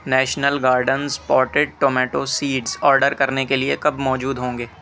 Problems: constant background noise